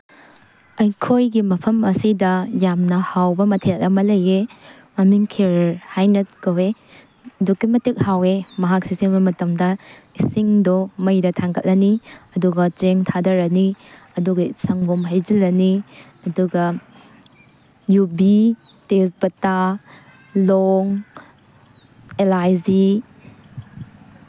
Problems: constant background noise